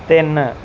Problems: background sounds at intervals